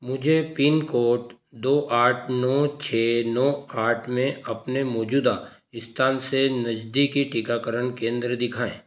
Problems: constant background noise